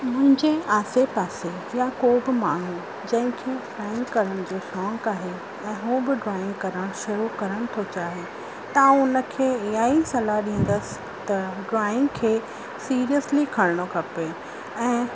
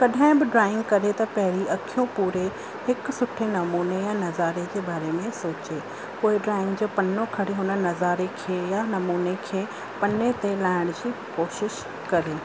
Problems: constant background noise